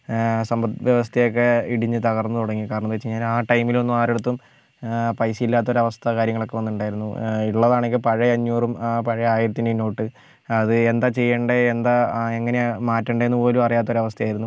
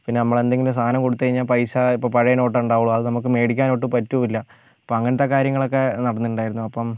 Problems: none marked